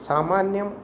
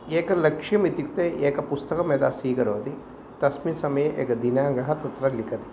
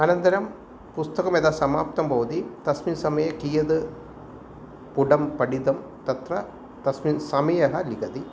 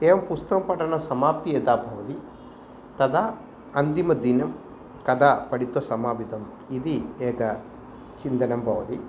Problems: none marked